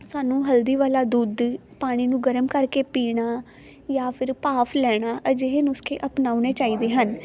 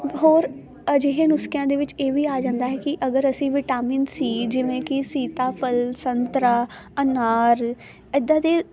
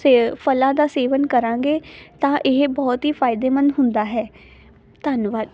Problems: none marked